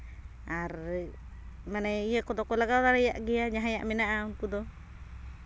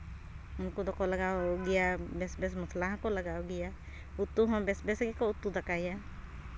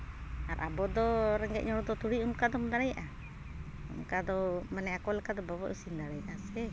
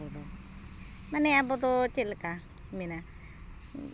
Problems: constant background noise